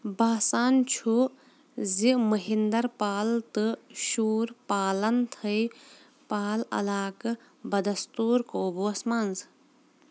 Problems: constant background noise